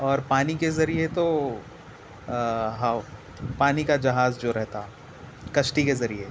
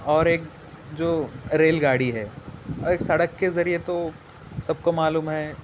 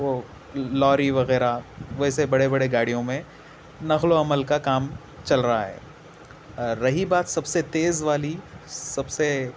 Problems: constant background noise, low volume